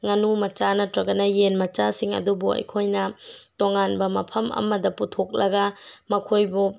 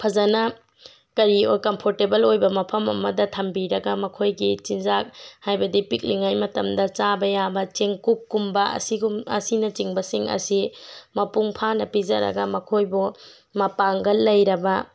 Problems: none marked